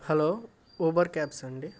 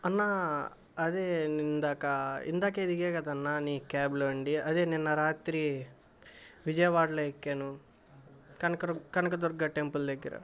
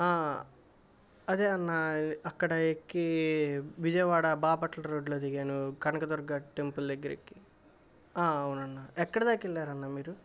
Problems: constant background noise